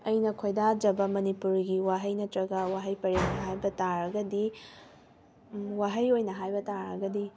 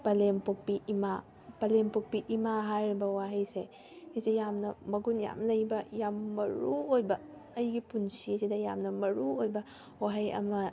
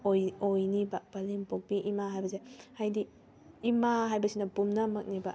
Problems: background sounds at intervals